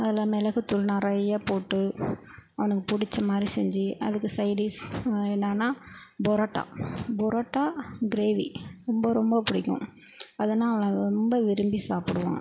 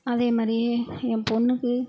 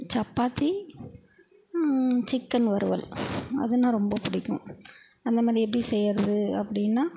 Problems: constant background noise